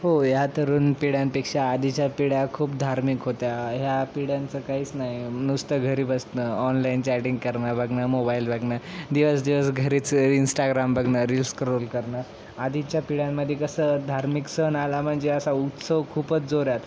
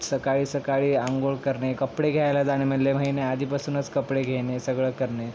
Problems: constant background noise